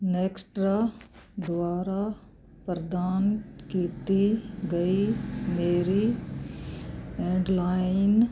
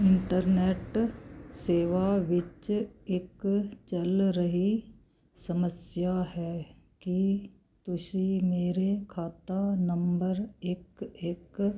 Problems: none marked